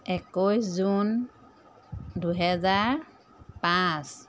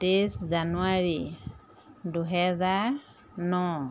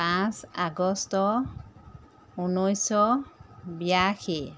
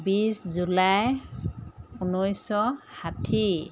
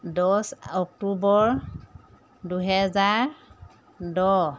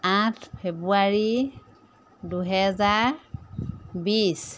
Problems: constant background noise